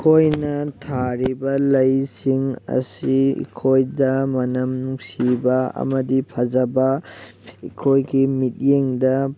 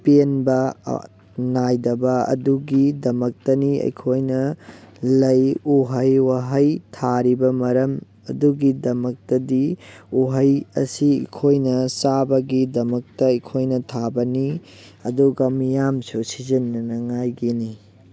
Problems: background sounds at intervals